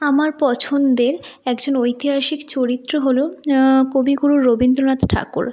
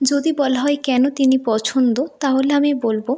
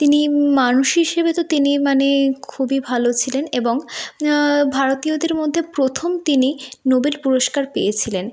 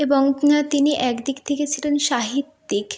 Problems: background sounds at intervals